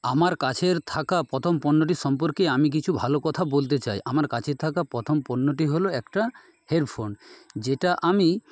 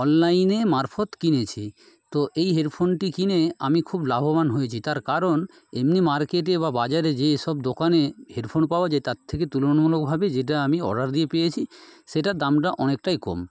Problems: background sounds at intervals